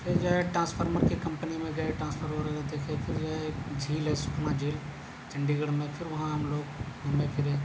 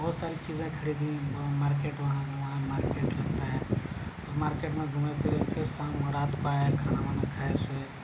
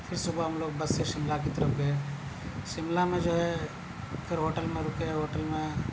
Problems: none marked